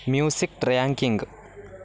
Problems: constant background noise